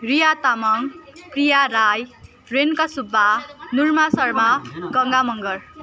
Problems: continuous background conversations